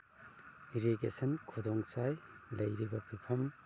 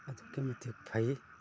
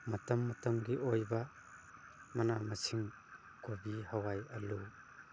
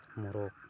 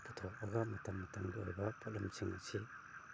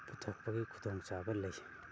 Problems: constant background noise